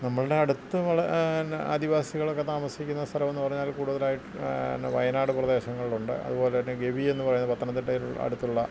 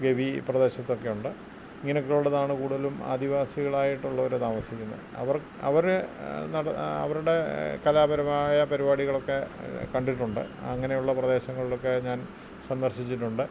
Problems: constant background noise